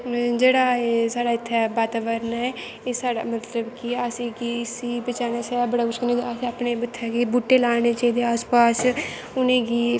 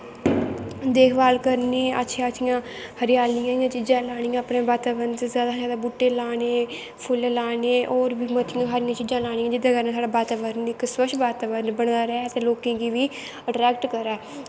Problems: constant background noise